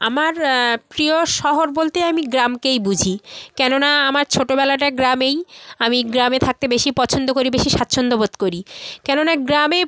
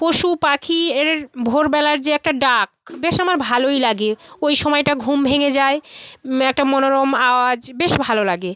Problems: continuous background conversations